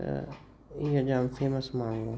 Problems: constant background noise, echo